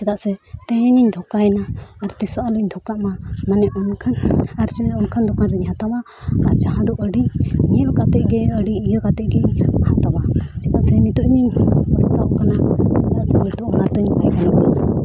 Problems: background conversations at intervals